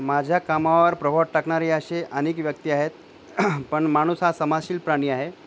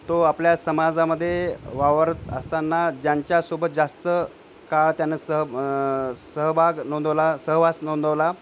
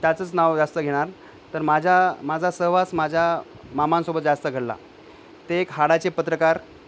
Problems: none marked